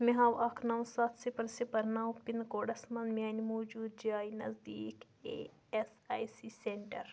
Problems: constant background noise